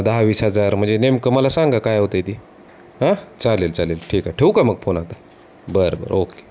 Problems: constant background noise